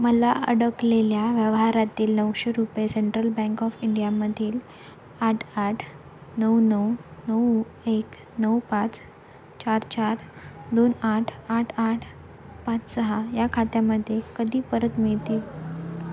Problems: none marked